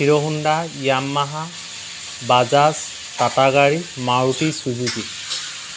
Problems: constant background noise